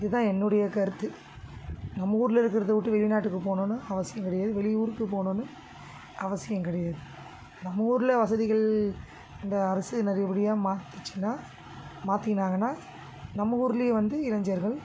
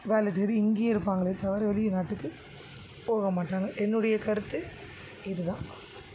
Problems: constant background noise